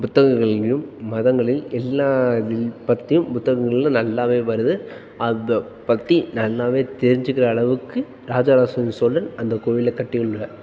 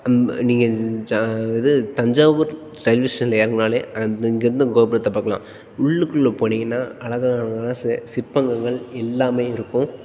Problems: background sounds at intervals